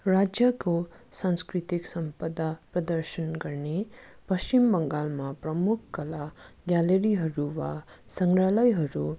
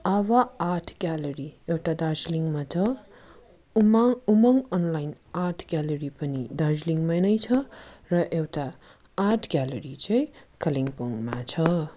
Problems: constant background noise